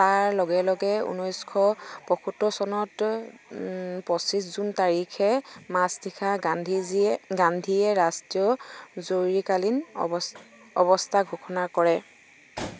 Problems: none marked